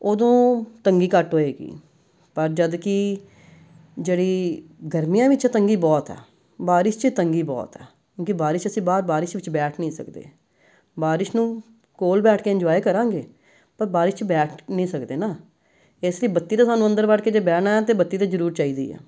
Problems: none marked